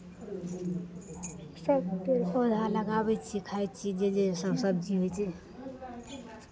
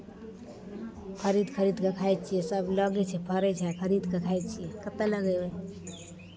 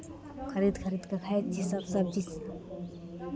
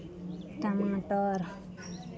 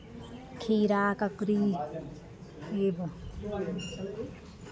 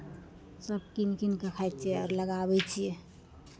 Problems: continuous background conversations